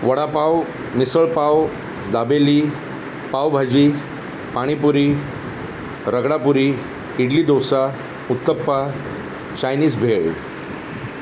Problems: constant background noise